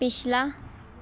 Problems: constant background noise